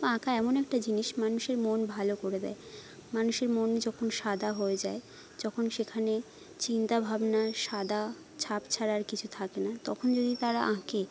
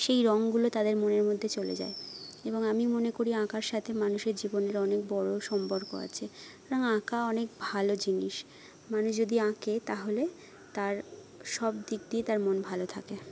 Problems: none marked